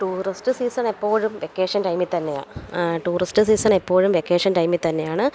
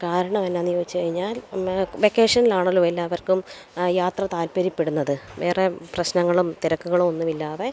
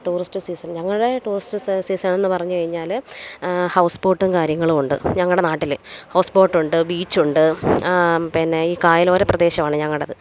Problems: background sounds at intervals